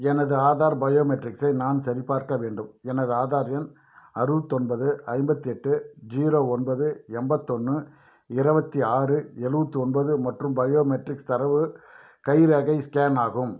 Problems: none marked